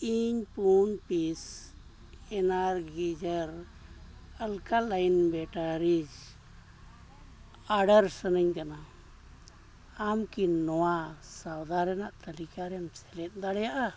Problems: constant background noise